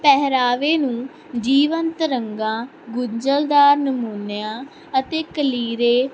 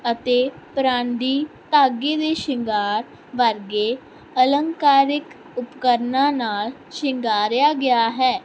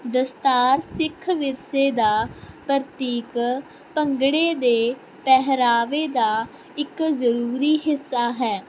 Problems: constant background noise